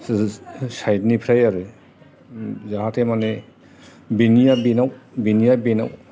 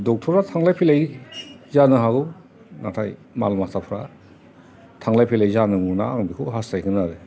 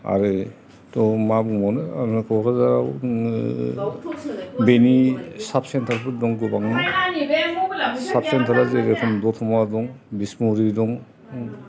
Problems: constant background noise, background conversations at intervals